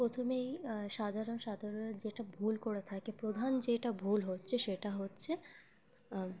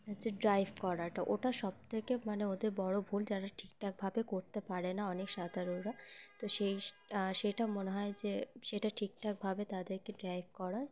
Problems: constant background noise, continuous background conversations